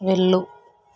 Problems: constant background noise